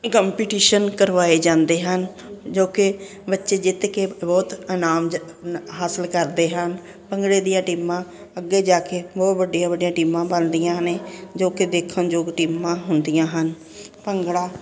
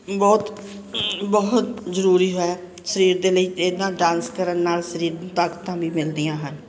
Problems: constant background noise